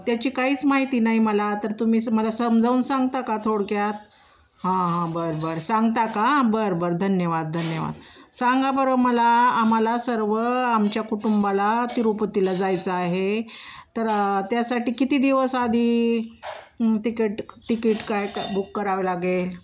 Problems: none marked